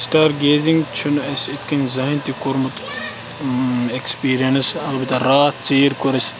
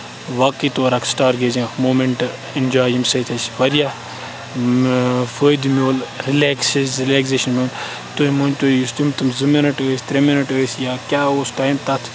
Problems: constant background noise, background conversations at intervals